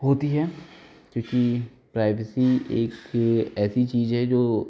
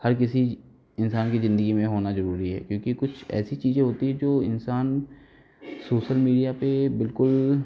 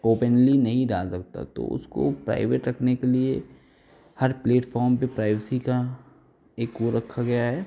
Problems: none marked